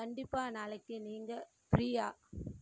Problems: background sounds at intervals, low volume